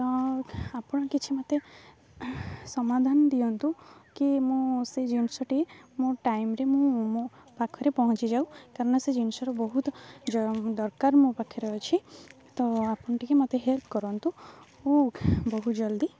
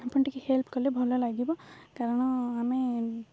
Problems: low volume